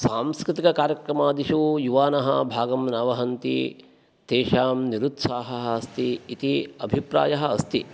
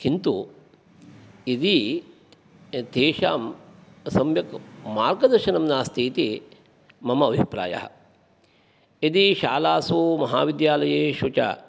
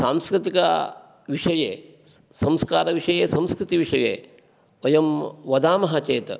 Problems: none marked